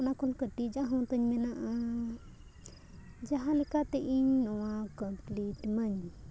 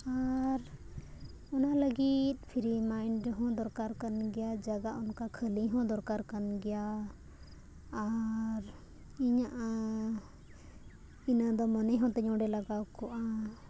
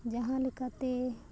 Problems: background sounds at intervals